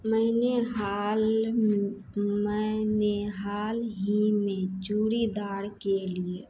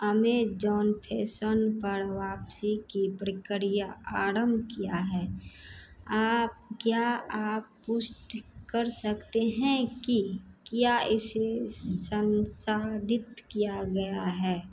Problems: none marked